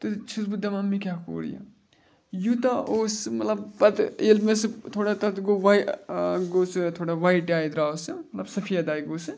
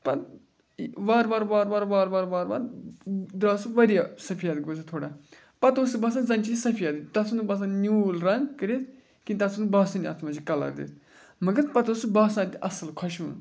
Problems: none marked